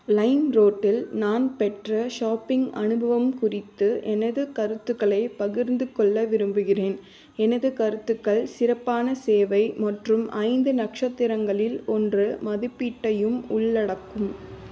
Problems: constant background noise